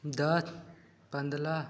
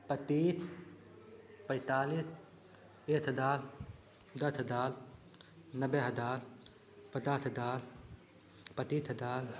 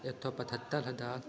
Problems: constant background noise